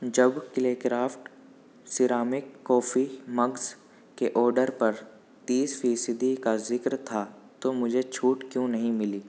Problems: background sounds at intervals, low volume